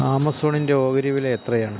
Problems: none marked